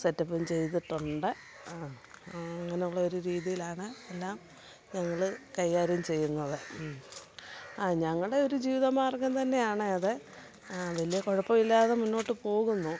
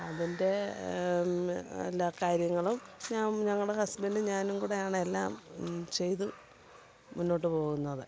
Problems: constant background noise, low volume